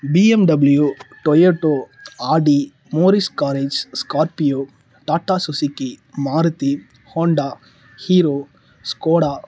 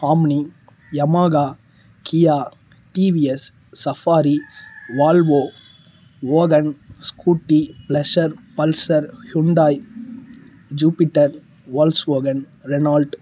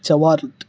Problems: low volume